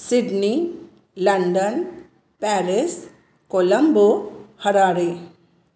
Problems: none marked